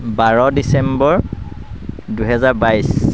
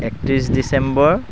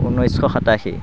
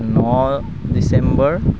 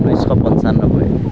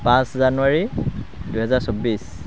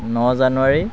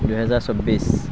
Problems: constant background noise